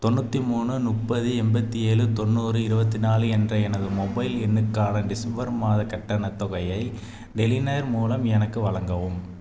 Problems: none marked